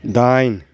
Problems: constant background noise